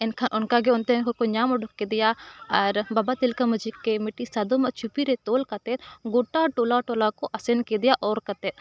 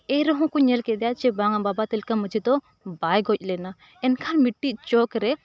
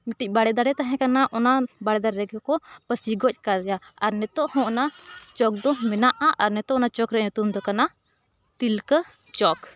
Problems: continuous background conversations